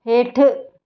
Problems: none marked